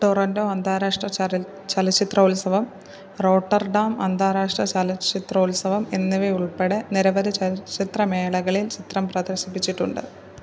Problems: none marked